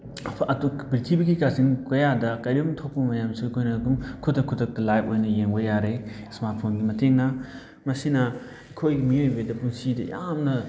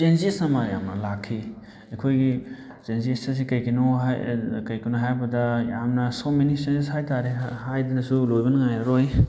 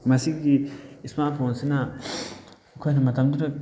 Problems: background conversations at intervals